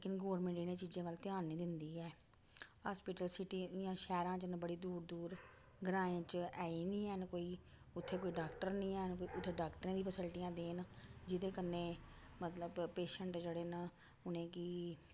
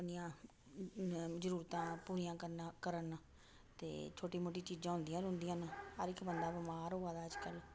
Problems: none marked